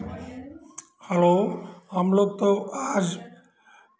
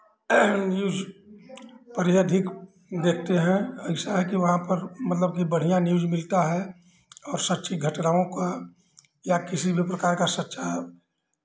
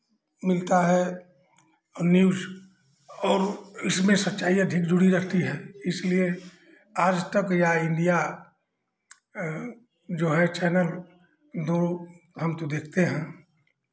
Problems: background sounds at intervals, background conversations at intervals